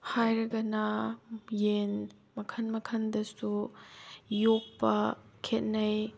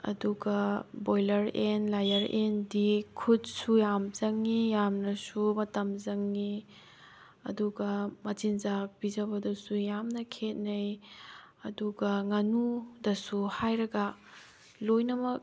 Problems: none marked